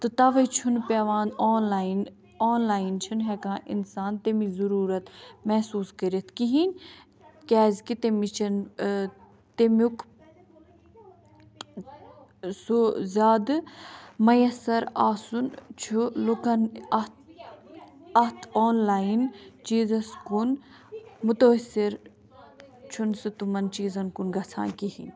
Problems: background conversations at intervals